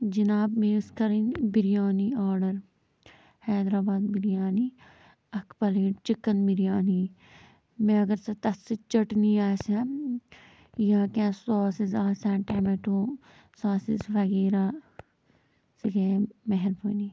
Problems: low volume